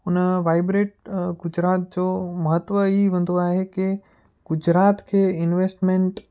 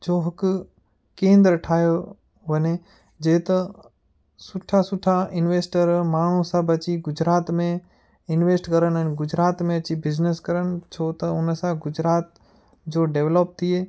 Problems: none marked